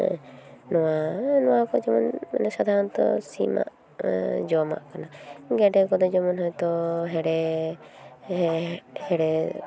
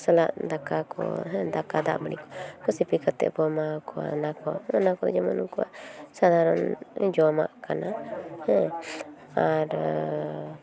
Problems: constant background noise, background conversations at intervals